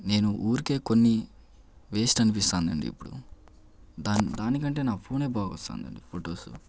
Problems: none marked